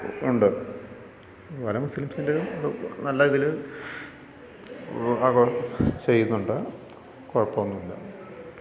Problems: background conversations at intervals